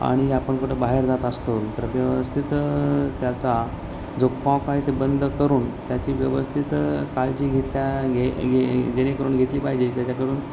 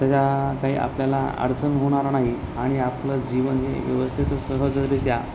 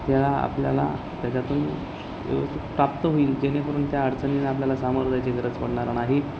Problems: constant background noise, background conversations at intervals